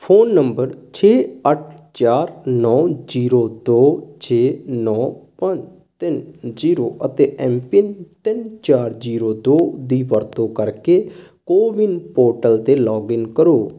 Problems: none marked